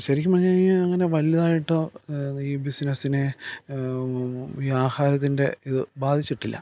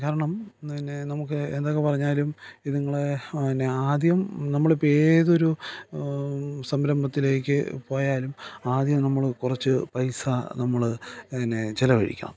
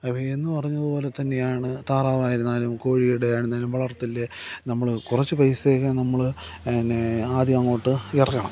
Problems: background sounds at intervals